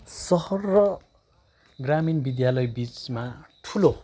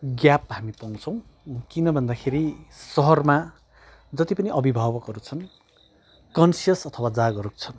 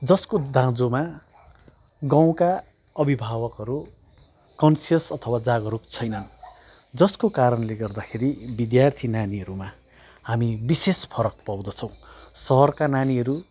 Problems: background sounds at intervals